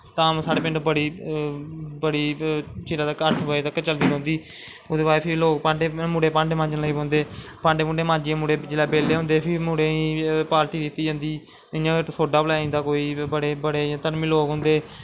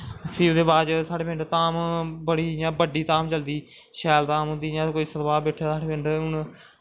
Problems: constant background noise